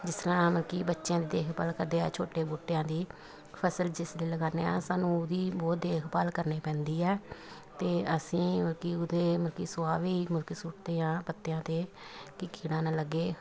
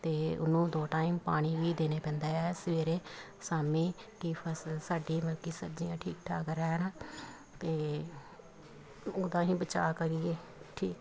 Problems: continuous background conversations